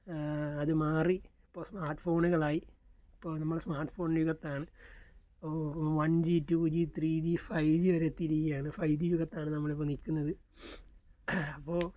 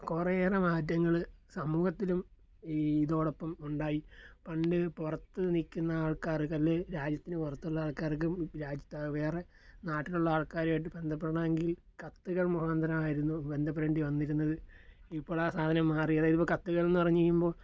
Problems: none marked